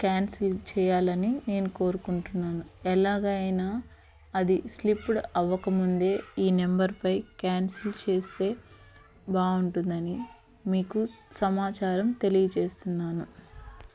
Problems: constant background noise, background conversations at intervals